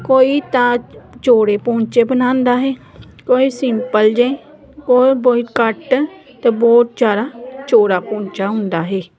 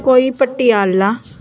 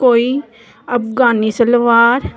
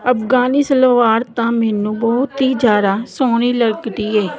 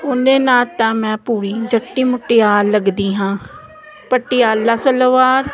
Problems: none marked